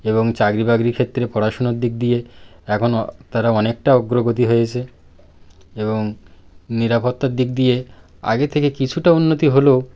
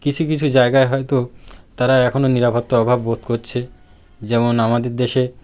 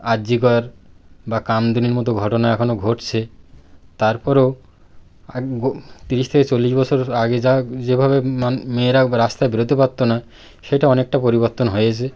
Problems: constant background noise